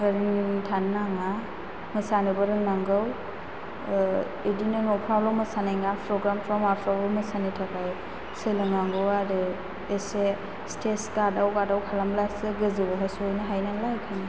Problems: constant background noise